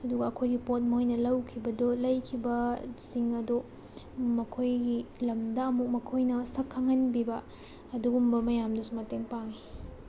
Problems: background sounds at intervals